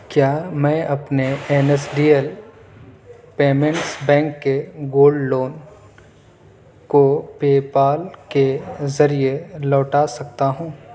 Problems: background sounds at intervals, background conversations at intervals